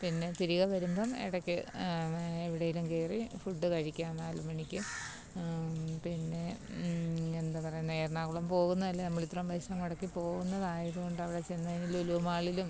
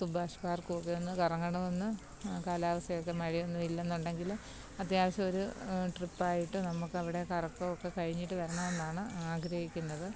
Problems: low volume